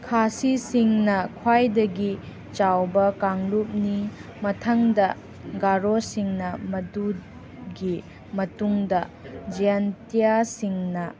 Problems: background sounds at intervals